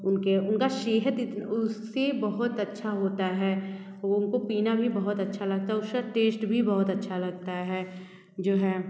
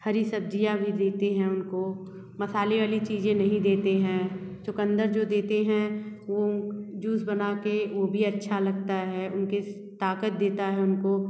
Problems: none marked